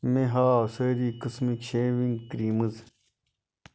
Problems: constant background noise